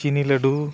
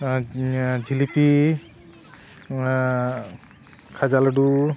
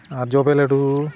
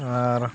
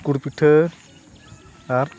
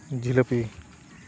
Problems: constant background noise, background conversations at intervals